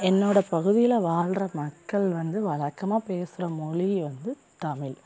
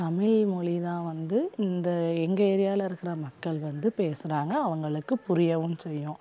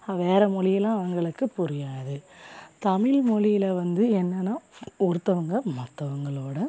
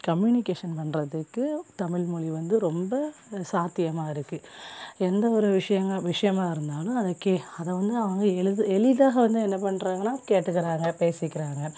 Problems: background sounds at intervals